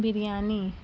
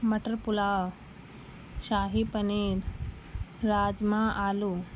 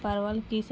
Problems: constant background noise